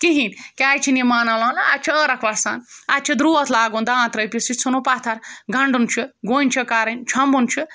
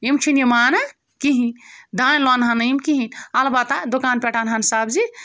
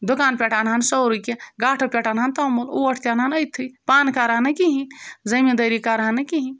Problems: background sounds at intervals